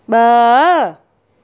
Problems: none marked